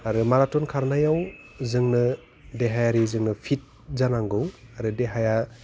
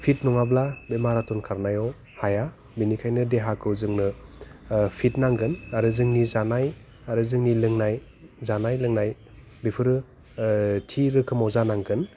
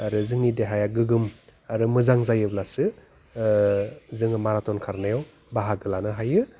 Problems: low volume